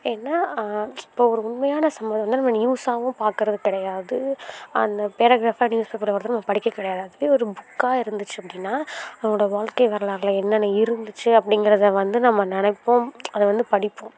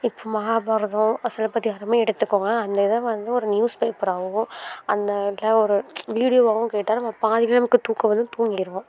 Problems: constant background noise